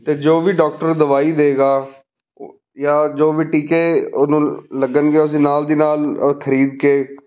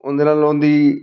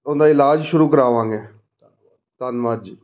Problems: background conversations at intervals